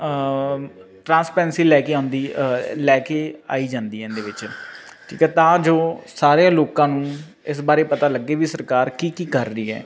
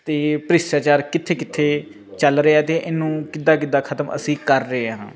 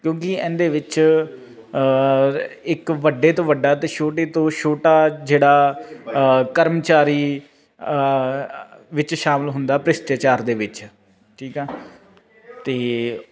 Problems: constant background noise